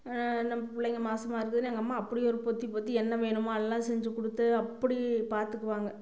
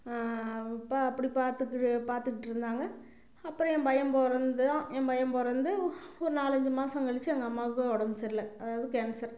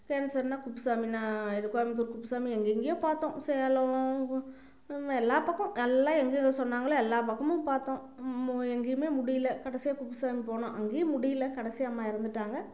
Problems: constant background noise